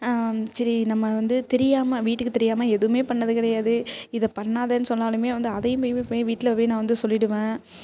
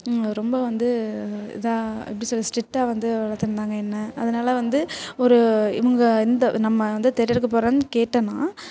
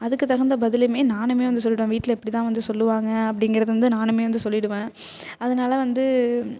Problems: constant background noise